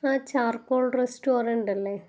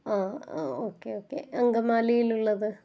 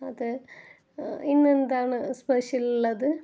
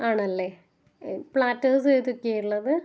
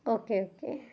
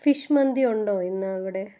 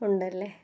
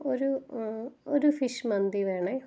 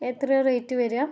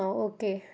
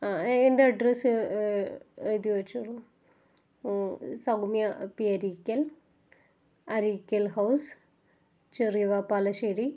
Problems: low volume